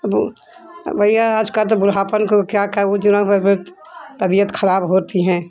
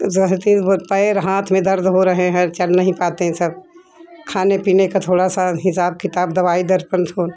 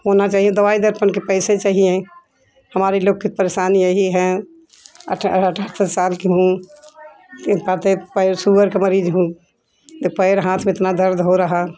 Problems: constant background noise, continuous background conversations